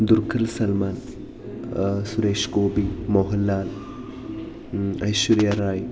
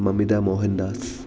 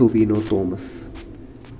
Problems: background sounds at intervals